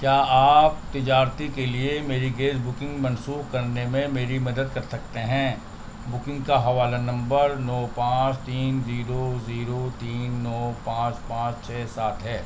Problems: constant background noise, low volume